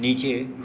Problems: background sounds at intervals